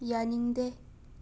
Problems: none marked